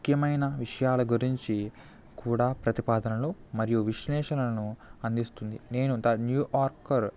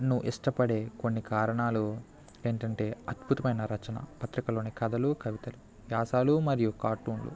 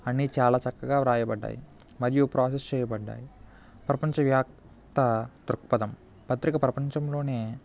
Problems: none marked